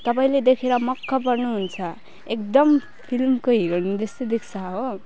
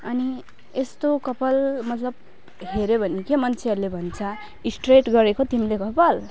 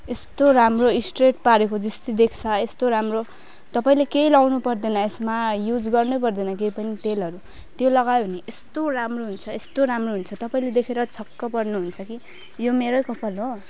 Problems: none marked